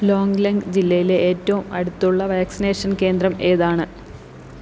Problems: constant background noise